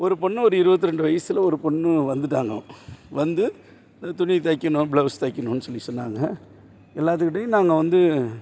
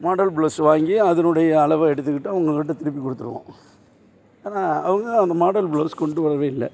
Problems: none marked